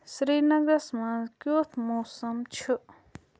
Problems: none marked